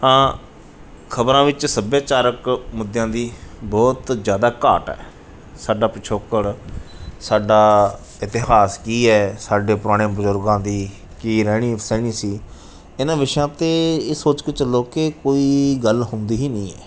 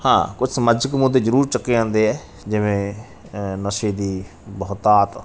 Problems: background sounds at intervals